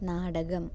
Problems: none marked